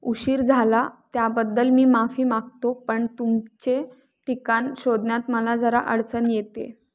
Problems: none marked